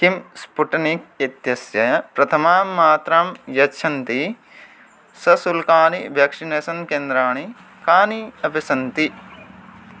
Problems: constant background noise